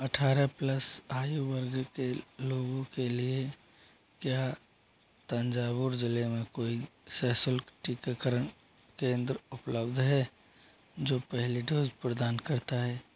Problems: low volume